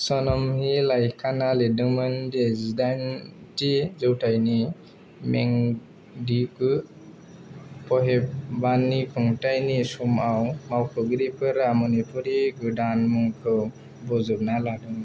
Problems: none marked